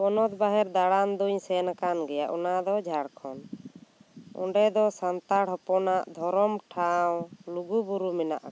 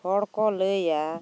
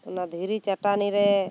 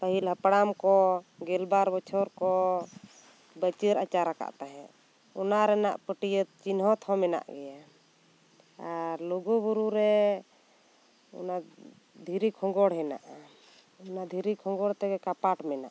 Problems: constant background noise